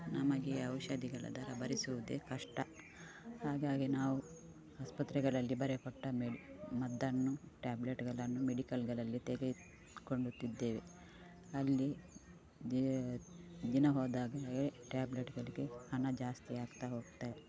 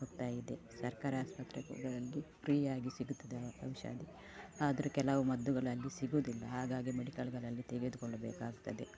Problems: background sounds at intervals